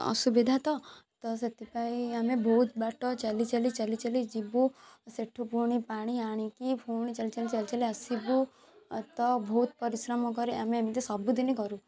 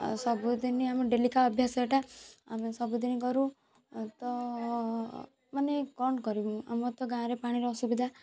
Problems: background sounds at intervals, background conversations at intervals